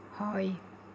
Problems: low volume